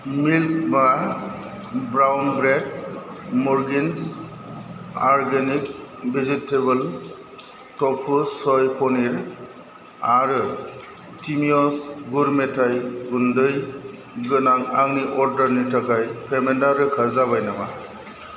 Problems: constant background noise